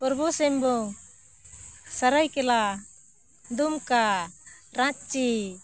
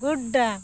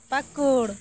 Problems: constant background noise